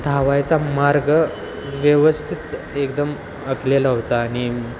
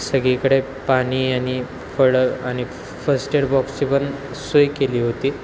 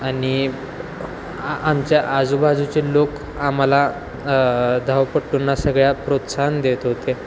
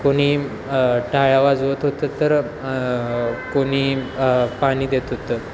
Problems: constant background noise